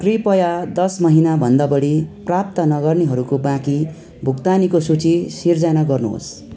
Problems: continuous background conversations